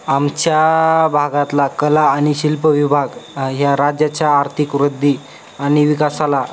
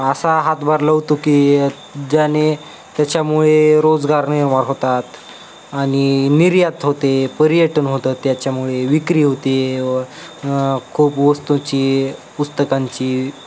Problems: constant background noise, background conversations at intervals